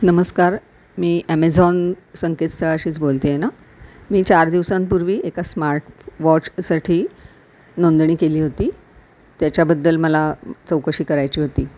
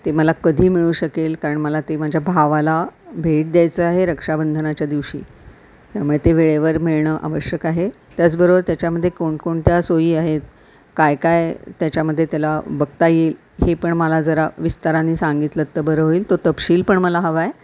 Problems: constant background noise